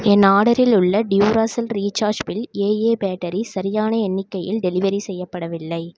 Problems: none marked